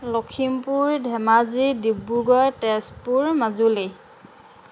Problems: constant background noise